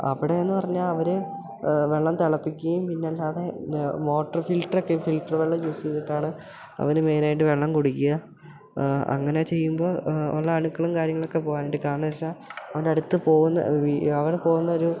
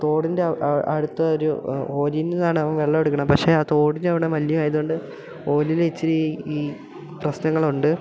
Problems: background sounds at intervals